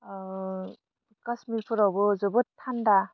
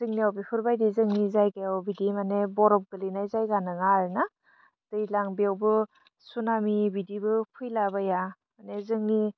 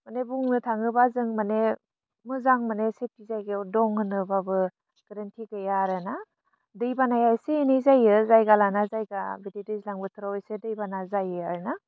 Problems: low volume